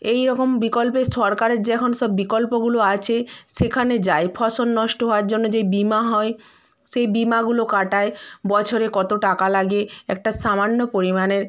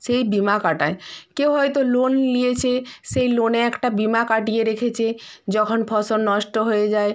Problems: background conversations at intervals